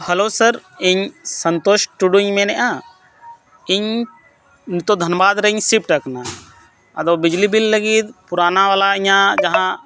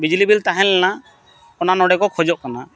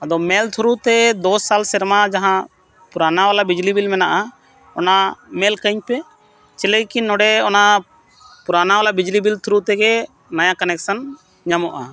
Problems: none marked